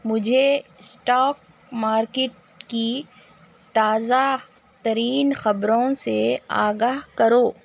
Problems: constant background noise